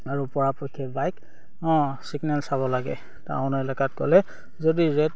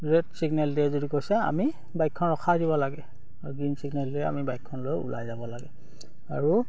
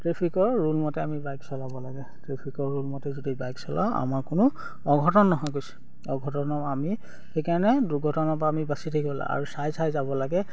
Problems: none marked